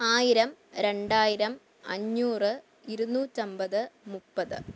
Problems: low volume